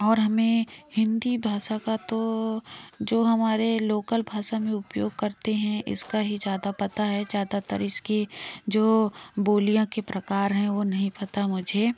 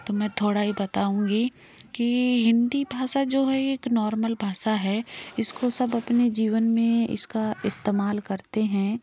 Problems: background sounds at intervals, background conversations at intervals